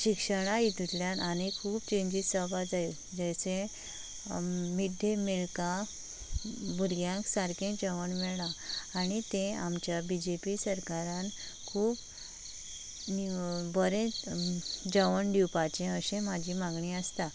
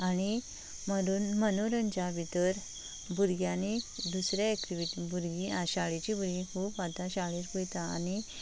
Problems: constant background noise